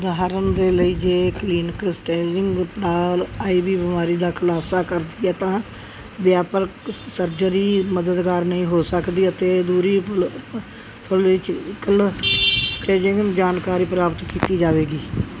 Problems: constant background noise